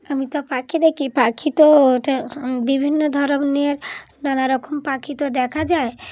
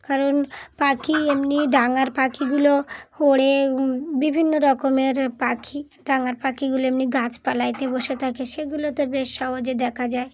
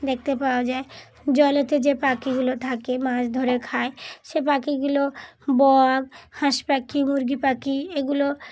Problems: background sounds at intervals